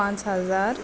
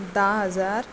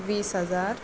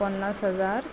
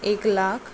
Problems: background sounds at intervals